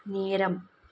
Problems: none marked